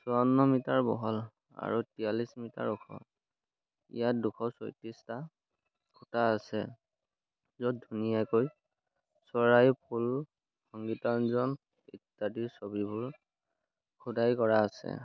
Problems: none marked